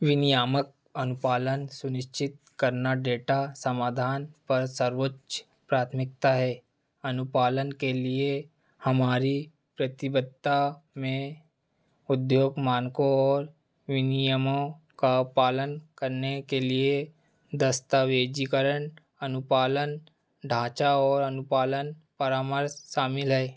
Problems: none marked